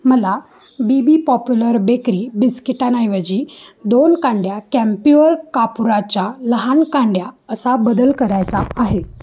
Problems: constant background noise, background conversations at intervals